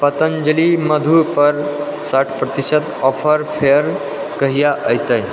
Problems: constant background noise